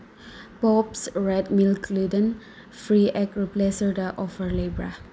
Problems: background sounds at intervals